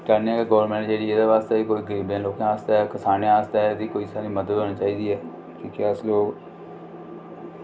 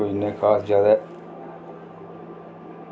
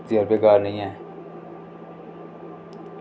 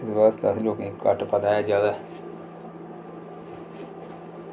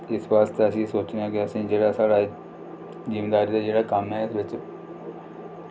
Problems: constant background noise